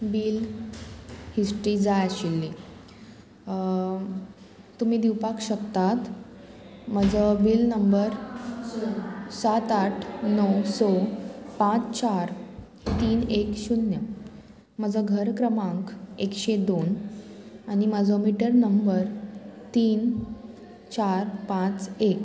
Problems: none marked